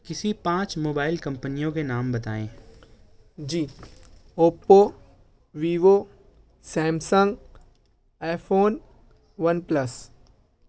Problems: none marked